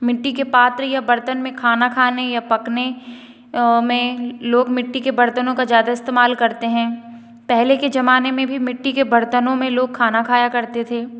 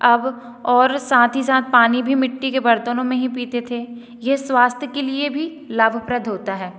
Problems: echo